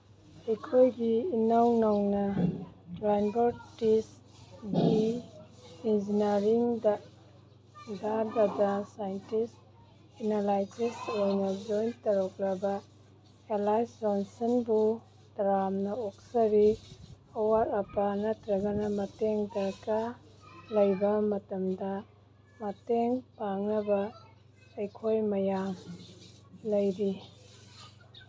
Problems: background sounds at intervals